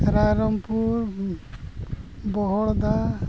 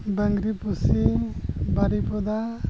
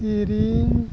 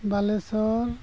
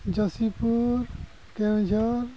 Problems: constant background noise